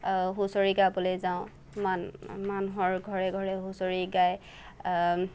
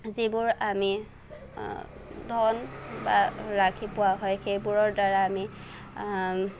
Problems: none marked